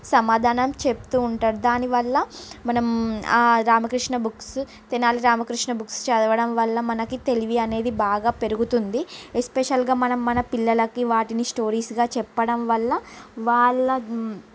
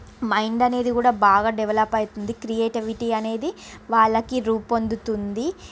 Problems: constant background noise